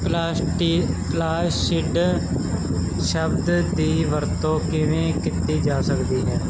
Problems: constant background noise